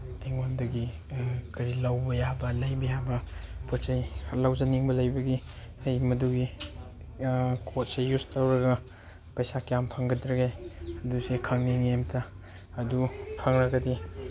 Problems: background sounds at intervals, background conversations at intervals